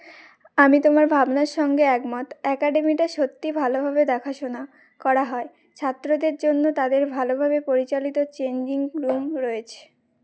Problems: background sounds at intervals